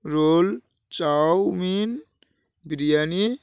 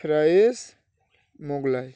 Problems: background sounds at intervals